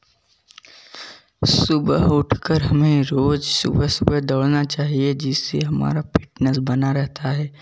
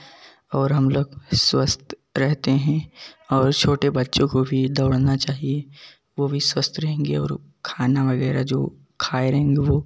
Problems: background sounds at intervals, continuous background conversations